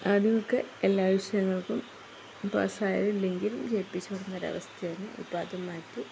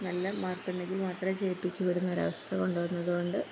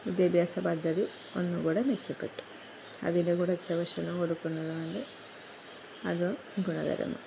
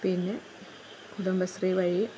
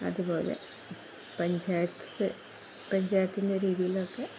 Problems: constant background noise, low volume